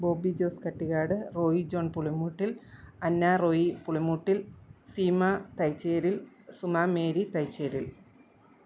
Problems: low volume